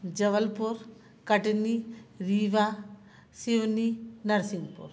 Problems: none marked